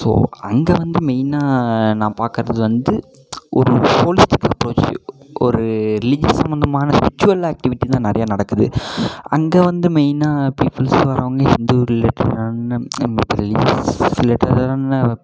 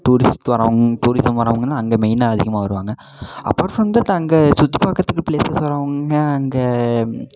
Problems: constant background noise